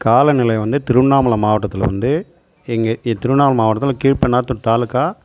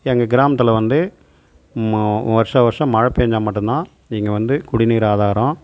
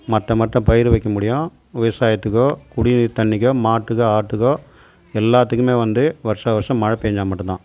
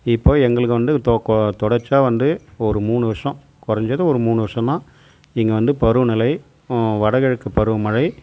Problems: constant background noise